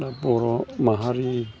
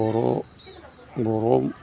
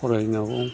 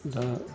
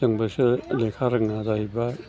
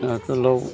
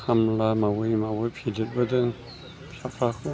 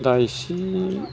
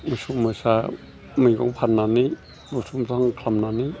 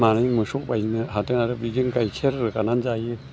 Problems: constant background noise